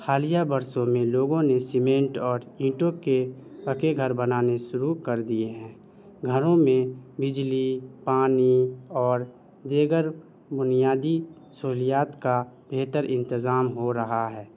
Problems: none marked